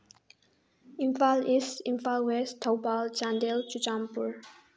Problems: low volume